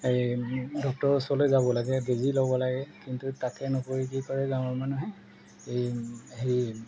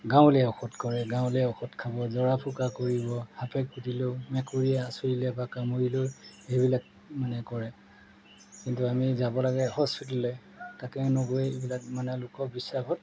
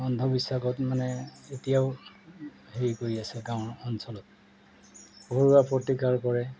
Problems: none marked